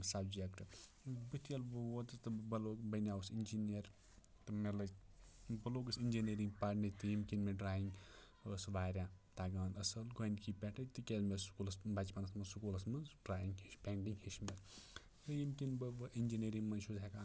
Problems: low volume